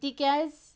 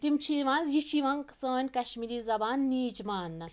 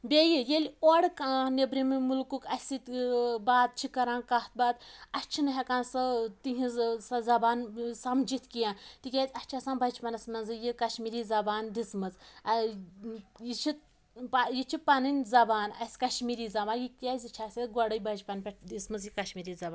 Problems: constant background noise